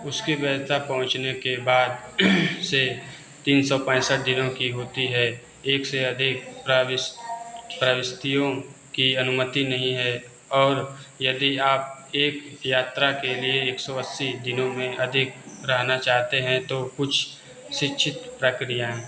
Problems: constant background noise